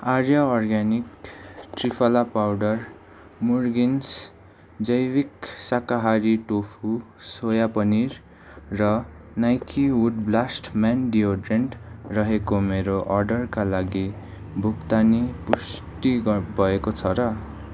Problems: background sounds at intervals